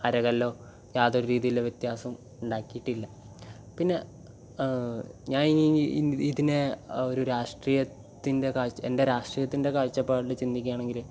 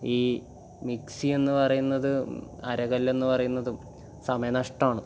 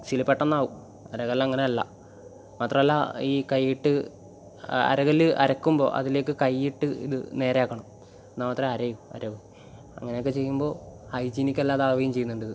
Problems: none marked